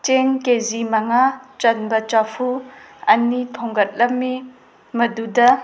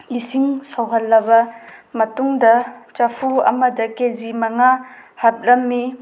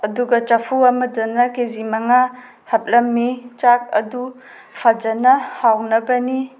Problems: background sounds at intervals